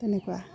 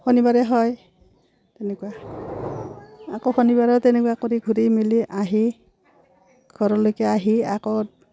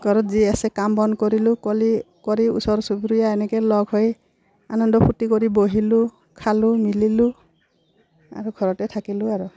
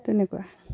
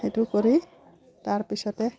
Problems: background sounds at intervals